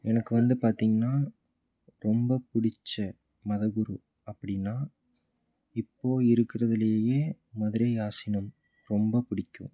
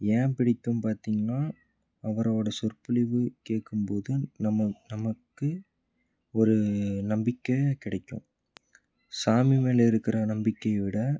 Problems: low volume